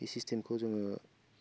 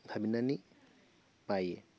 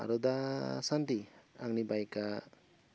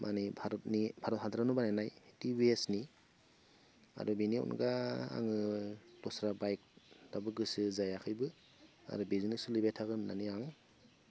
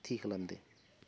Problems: none marked